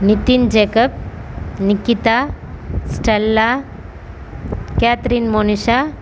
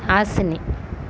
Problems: none marked